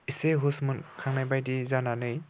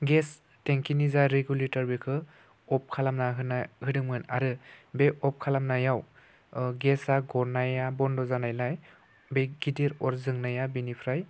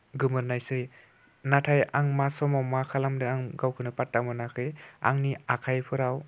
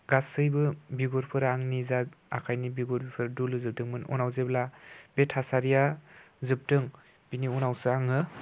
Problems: constant background noise